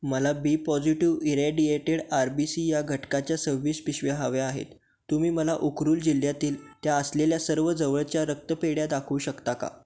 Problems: background sounds at intervals